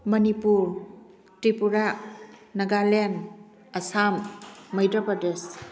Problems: background conversations at intervals